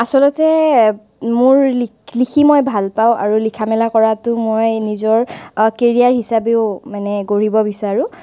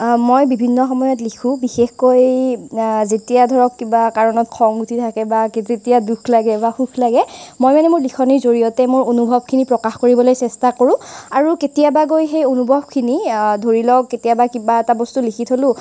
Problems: constant background noise